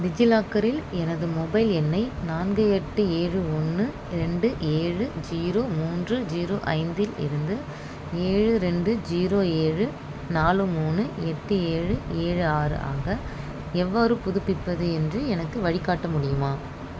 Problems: constant background noise